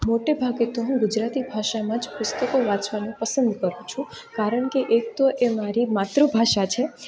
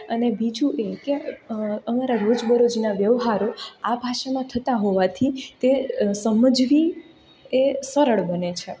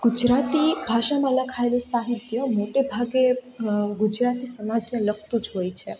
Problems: none marked